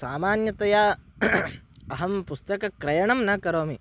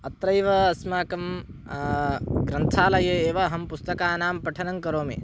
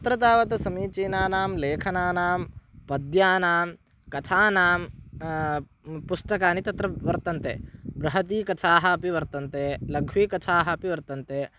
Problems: none marked